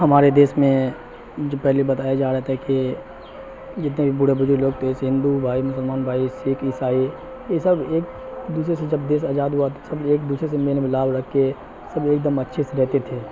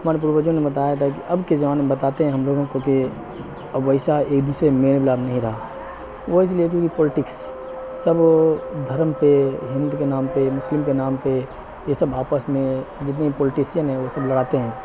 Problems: constant background noise